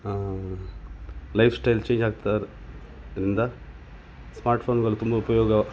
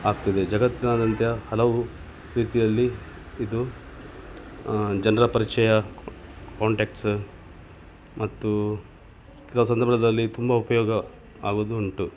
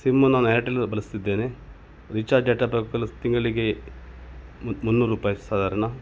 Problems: none marked